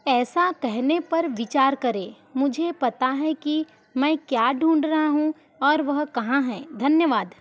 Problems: background sounds at intervals